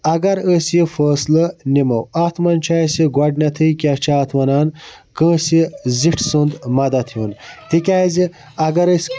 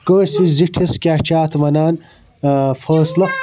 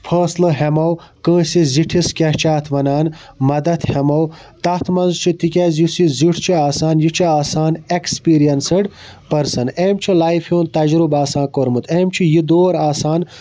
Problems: none marked